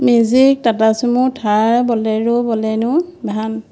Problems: constant background noise